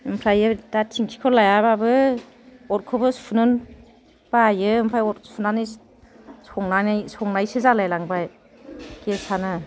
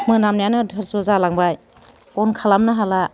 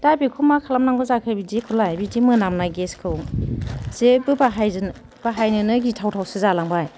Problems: none marked